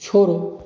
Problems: background conversations at intervals